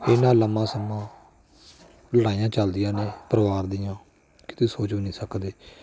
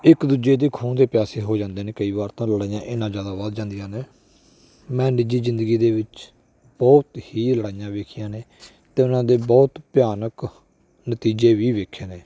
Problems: none marked